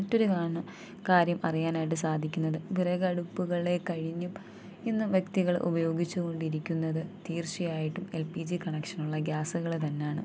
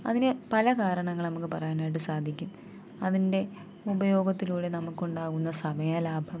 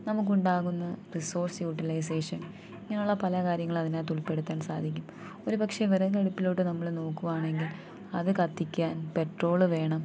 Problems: constant background noise, low volume